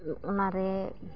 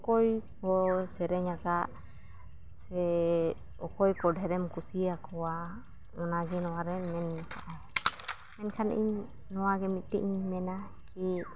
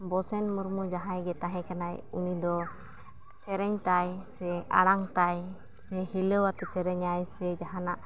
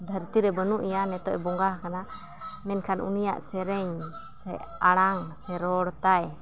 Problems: none marked